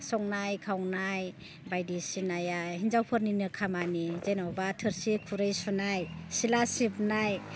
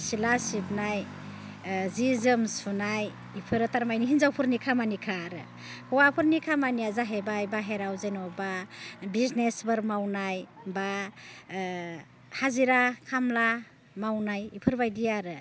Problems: none marked